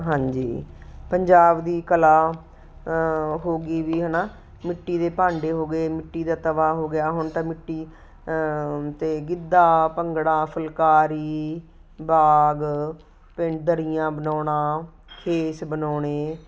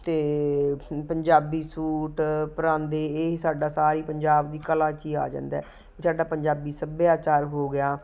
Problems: constant background noise